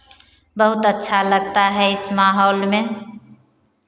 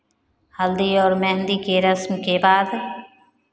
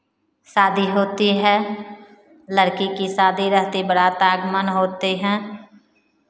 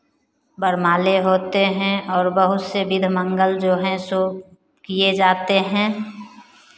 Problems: constant background noise